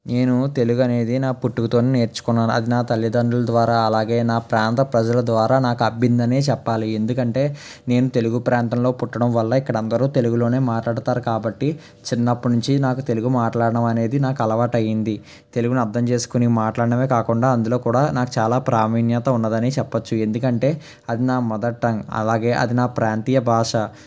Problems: none marked